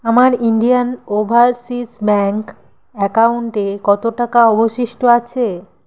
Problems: constant background noise